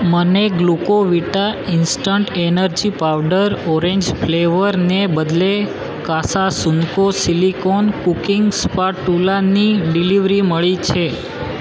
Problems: constant background noise